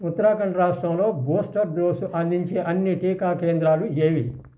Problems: constant background noise